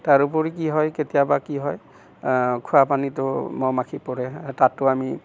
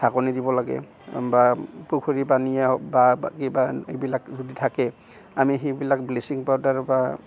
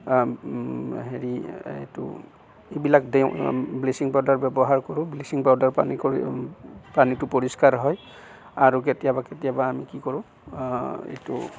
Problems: background sounds at intervals